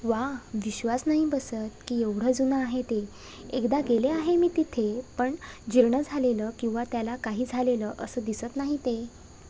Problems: none marked